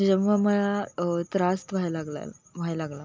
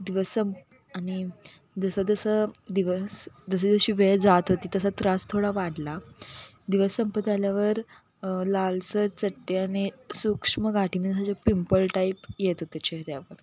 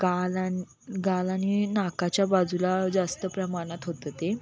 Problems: constant background noise, continuous background conversations